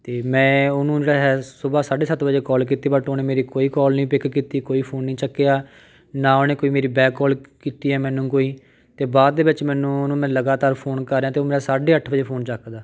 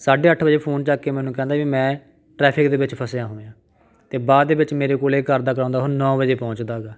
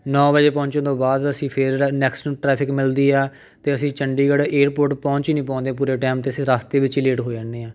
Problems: background conversations at intervals